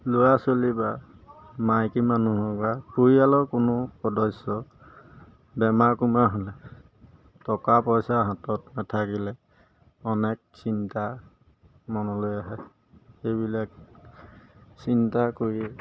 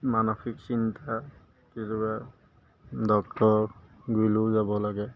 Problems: background sounds at intervals